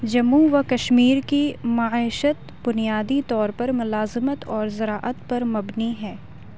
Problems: none marked